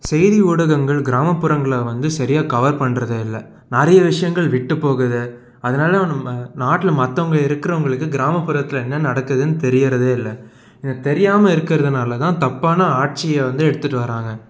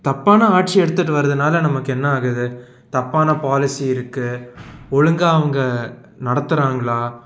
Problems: none marked